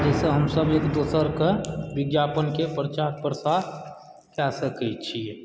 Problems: background sounds at intervals, background conversations at intervals